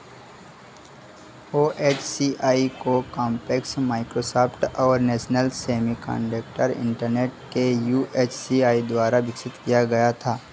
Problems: none marked